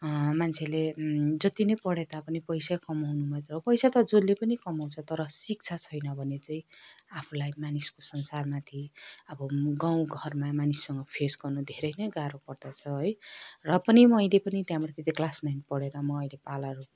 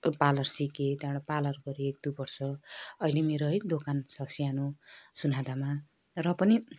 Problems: none marked